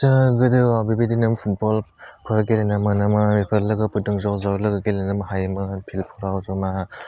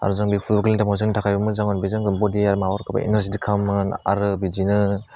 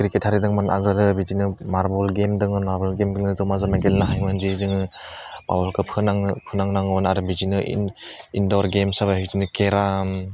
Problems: low volume